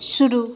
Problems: constant background noise, echo